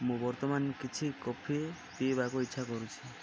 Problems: background sounds at intervals